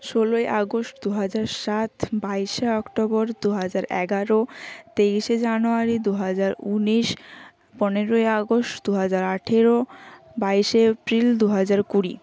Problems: constant background noise